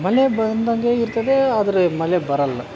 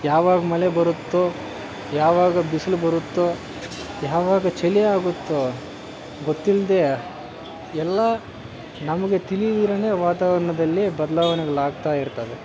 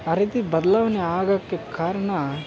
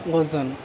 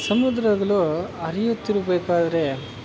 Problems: constant background noise